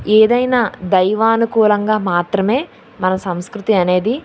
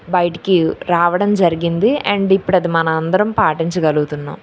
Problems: none marked